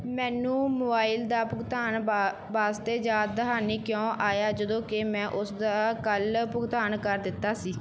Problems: background sounds at intervals